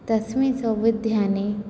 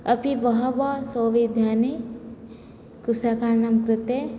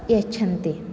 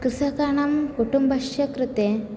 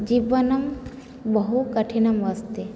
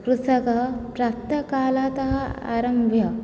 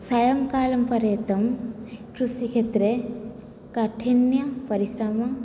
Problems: none marked